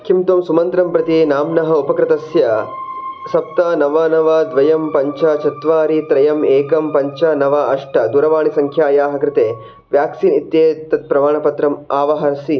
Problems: background sounds at intervals